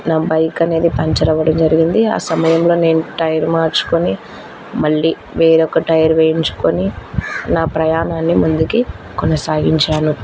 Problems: constant background noise